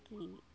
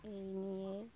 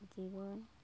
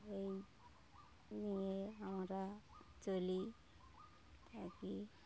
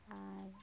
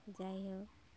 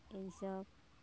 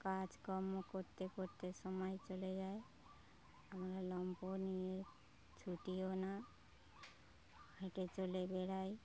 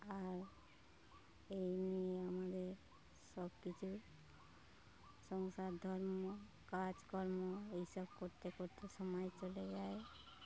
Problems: low volume